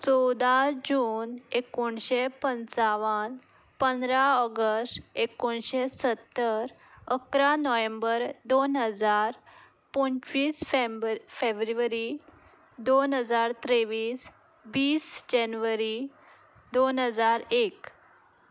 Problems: background sounds at intervals